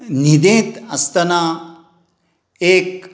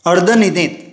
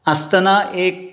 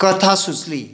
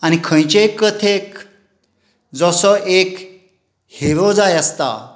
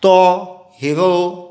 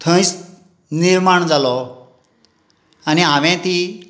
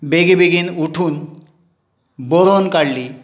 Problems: none marked